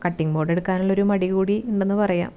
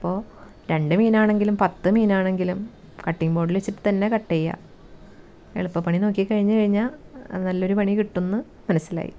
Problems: background sounds at intervals